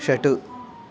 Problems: background sounds at intervals, background conversations at intervals